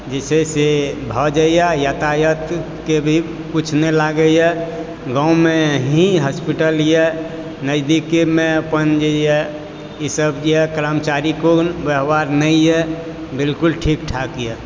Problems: background sounds at intervals